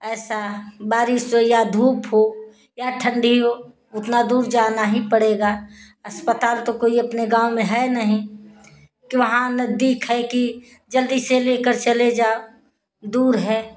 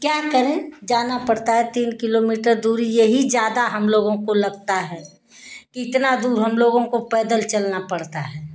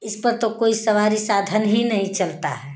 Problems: constant background noise